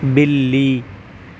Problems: constant background noise